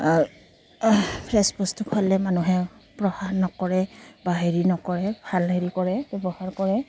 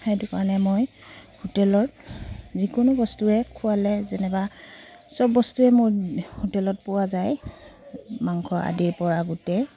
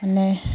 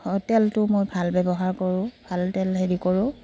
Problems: none marked